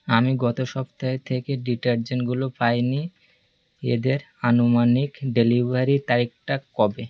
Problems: constant background noise